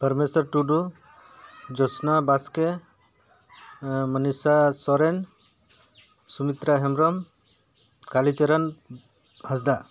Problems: background sounds at intervals